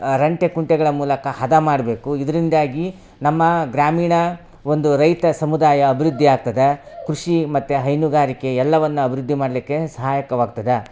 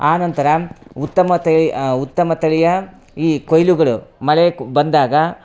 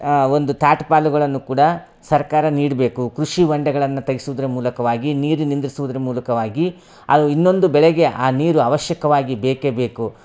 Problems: none marked